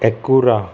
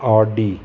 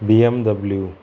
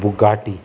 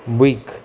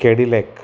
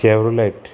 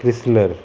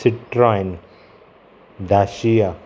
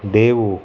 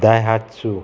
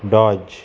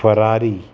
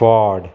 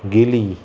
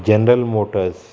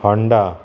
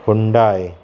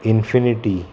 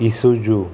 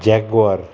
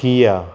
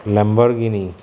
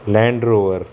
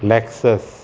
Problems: constant background noise